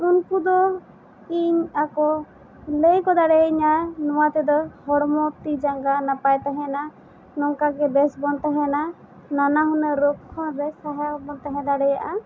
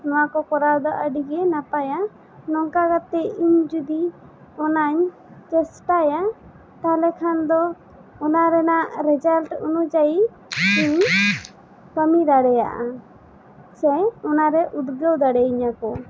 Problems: constant background noise